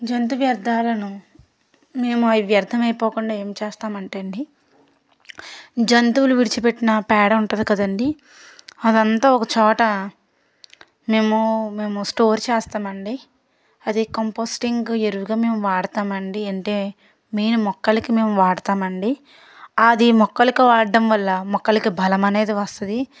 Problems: background sounds at intervals